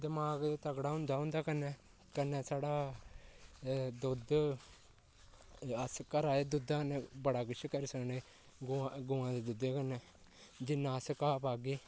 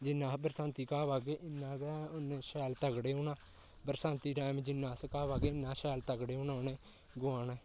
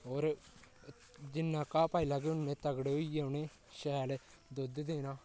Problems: constant background noise, low volume